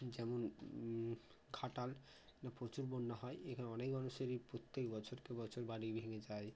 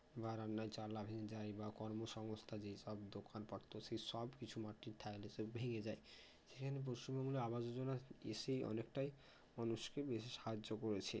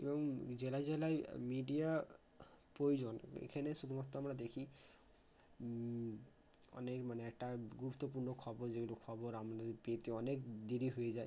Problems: constant background noise